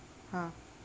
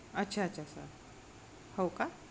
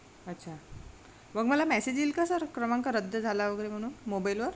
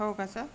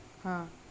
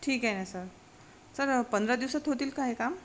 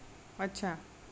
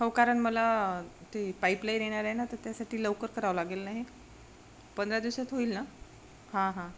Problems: constant background noise